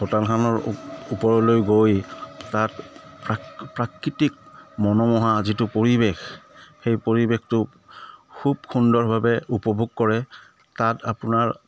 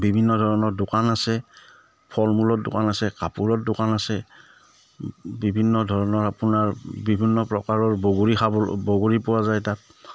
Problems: none marked